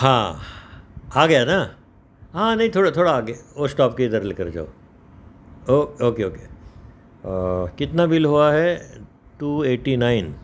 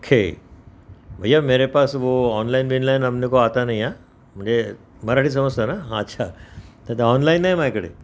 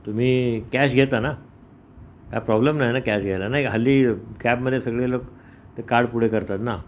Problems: none marked